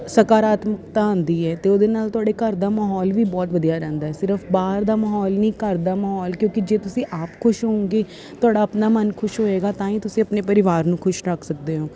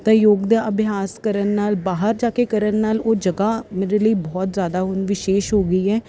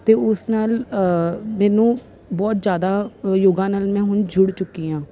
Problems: constant background noise